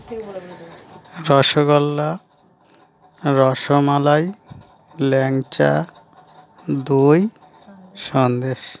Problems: none marked